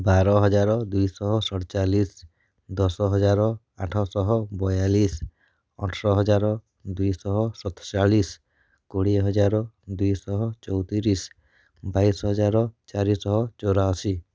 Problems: none marked